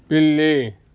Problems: constant background noise